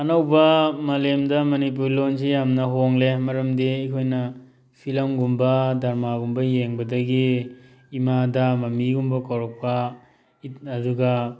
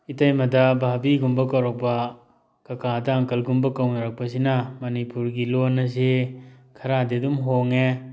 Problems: background sounds at intervals